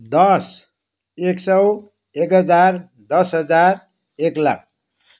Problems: none marked